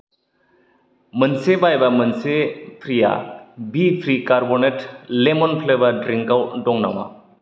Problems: none marked